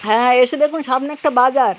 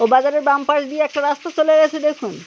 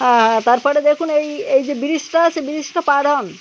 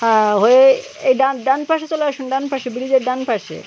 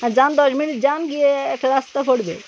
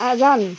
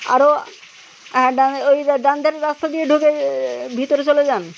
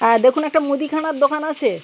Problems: constant background noise, background conversations at intervals